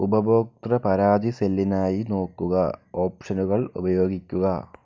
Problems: low volume